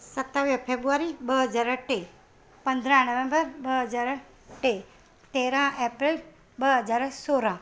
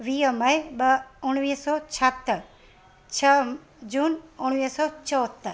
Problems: constant background noise